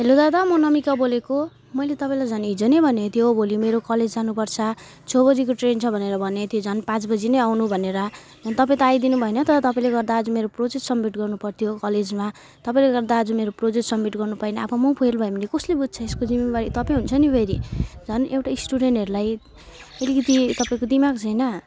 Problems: constant background noise